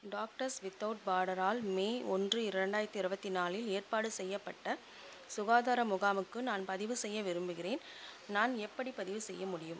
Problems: constant background noise, background conversations at intervals, low volume